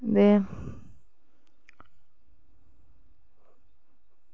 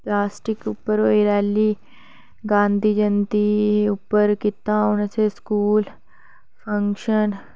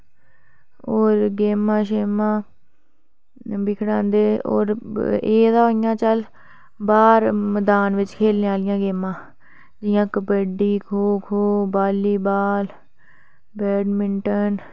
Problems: none marked